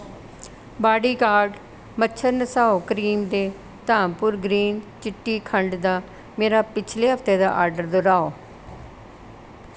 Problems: none marked